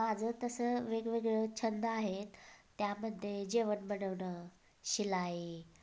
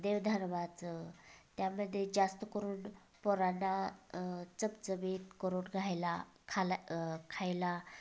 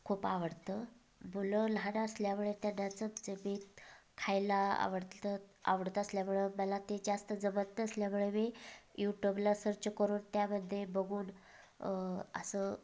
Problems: background sounds at intervals, background conversations at intervals